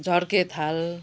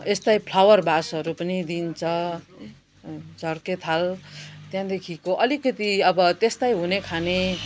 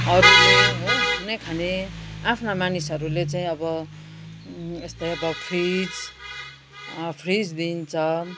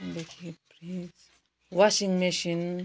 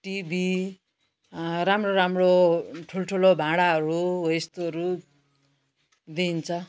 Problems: constant background noise